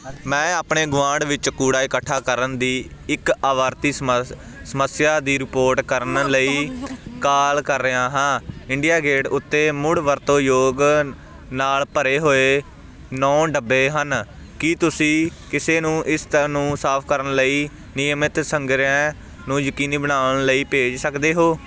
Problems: background sounds at intervals